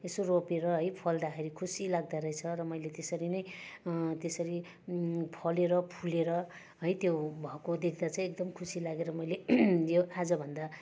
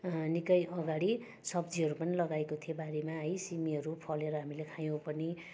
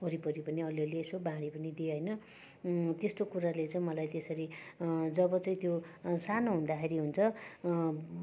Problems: constant background noise, continuous background conversations